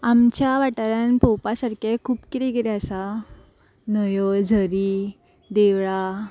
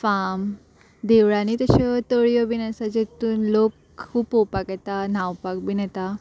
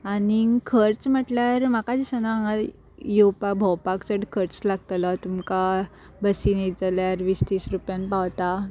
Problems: background sounds at intervals